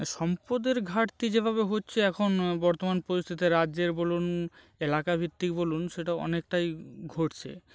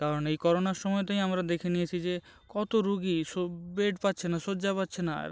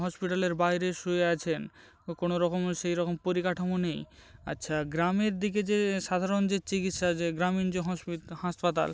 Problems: none marked